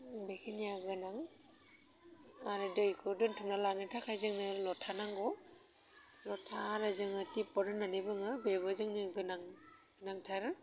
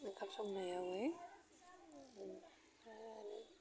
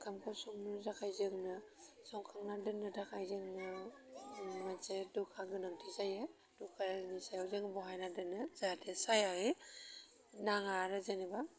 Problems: constant background noise